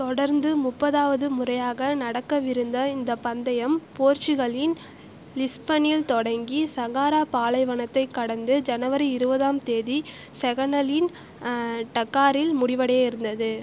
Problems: constant background noise